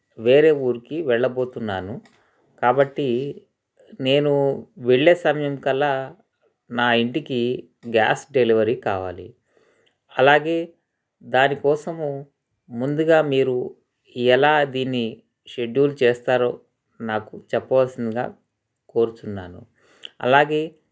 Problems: none marked